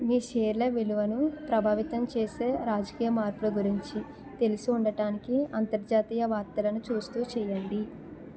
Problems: continuous background conversations